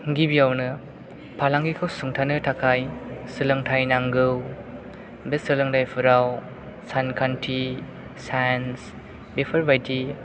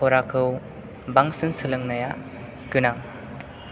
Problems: background sounds at intervals